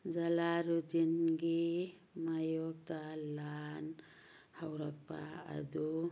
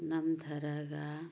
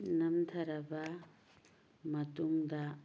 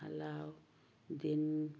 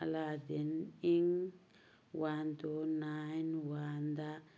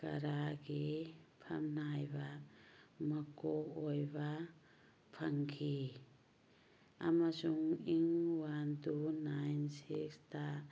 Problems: background sounds at intervals